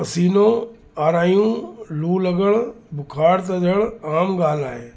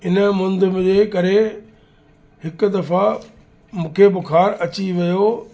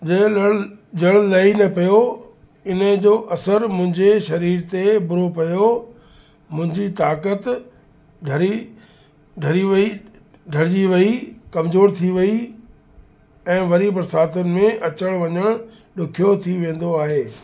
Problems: constant background noise, echo